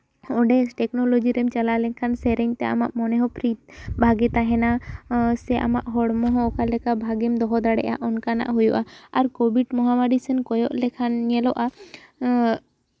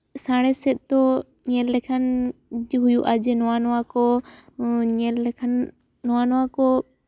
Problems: none marked